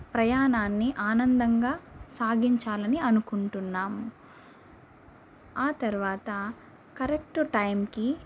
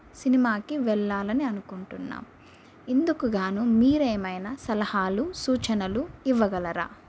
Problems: constant background noise